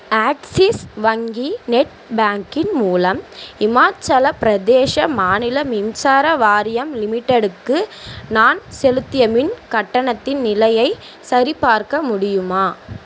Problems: constant background noise